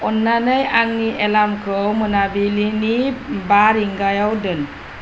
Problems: constant background noise